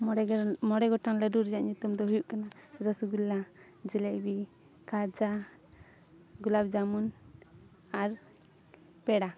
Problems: none marked